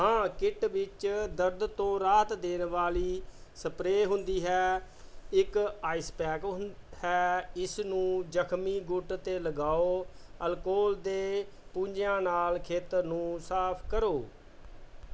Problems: background sounds at intervals